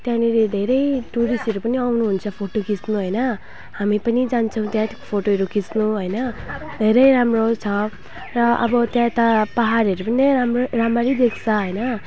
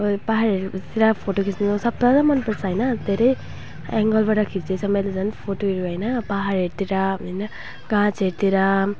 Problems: background sounds at intervals